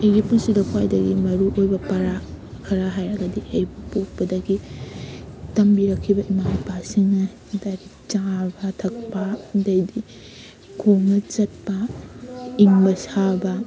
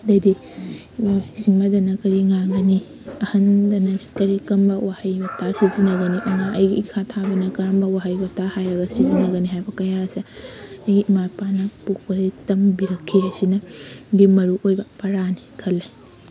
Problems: none marked